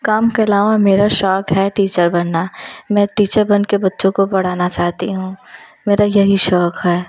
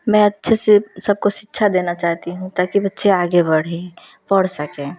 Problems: none marked